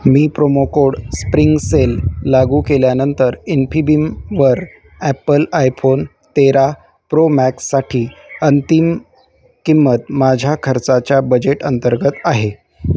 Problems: constant background noise, background conversations at intervals